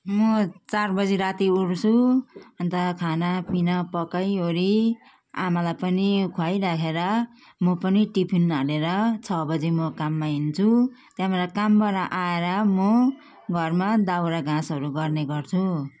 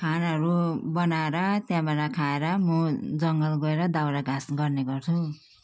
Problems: background sounds at intervals